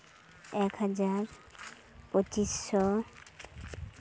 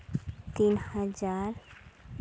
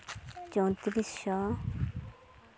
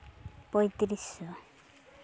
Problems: constant background noise